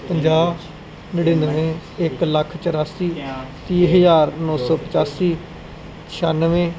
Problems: background sounds at intervals, background conversations at intervals